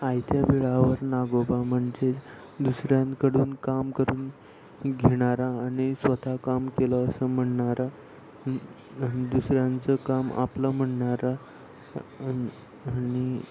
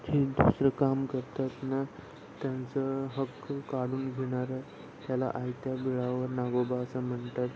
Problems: none marked